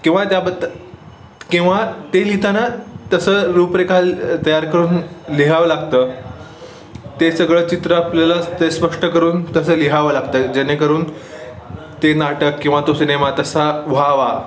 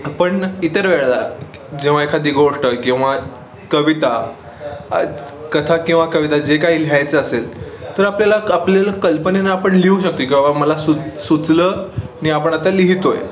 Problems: constant background noise, background conversations at intervals, echo